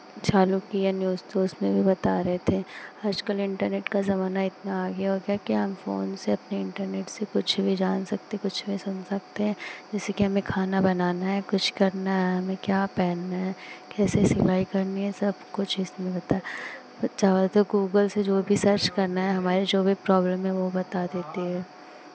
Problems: constant background noise